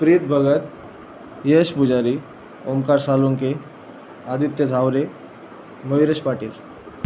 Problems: constant background noise